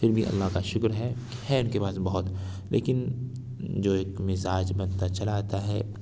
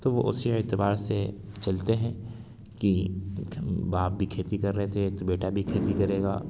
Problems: constant background noise